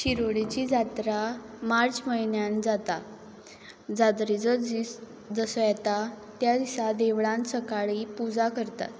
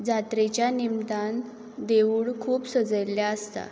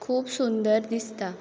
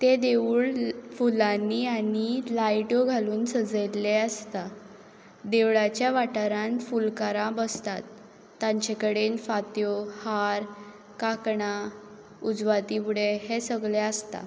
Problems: background sounds at intervals